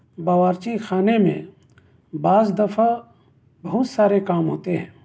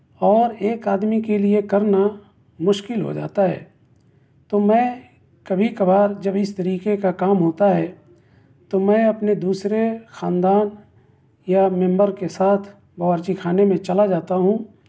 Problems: none marked